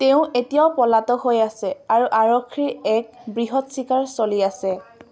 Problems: none marked